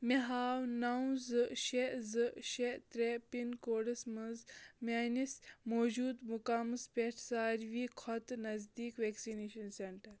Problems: background sounds at intervals